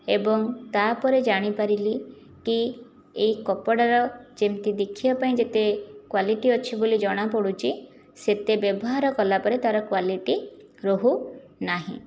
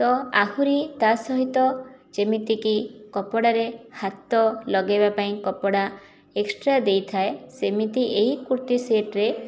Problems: none marked